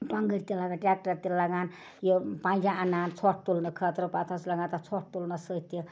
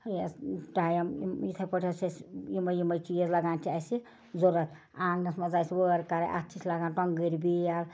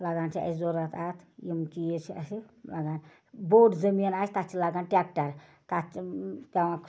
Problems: background sounds at intervals